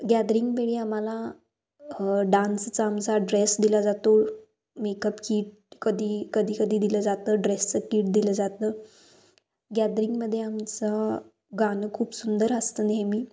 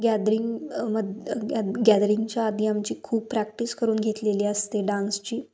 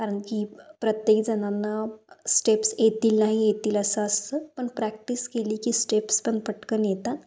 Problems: constant background noise